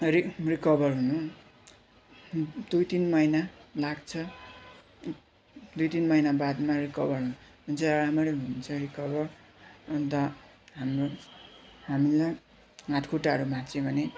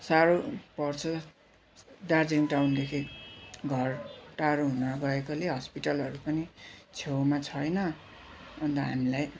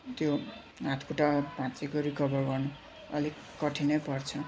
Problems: constant background noise, continuous background conversations